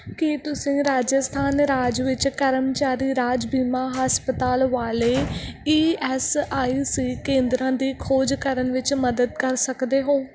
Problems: background sounds at intervals